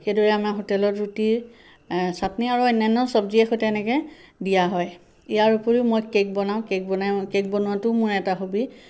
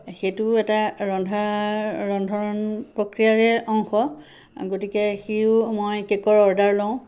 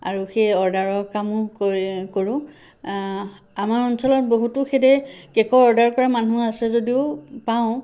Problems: constant background noise